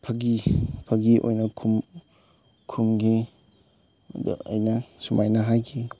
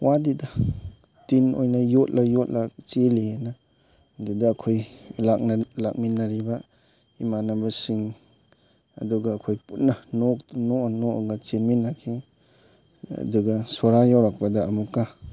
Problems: constant background noise